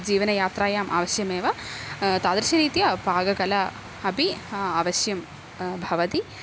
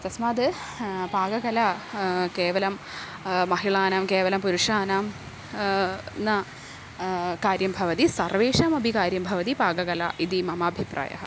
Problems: constant background noise